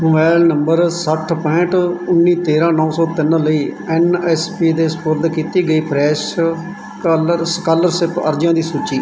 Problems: none marked